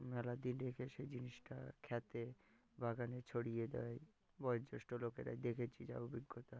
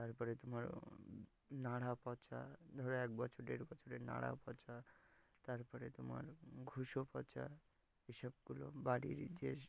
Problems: background sounds at intervals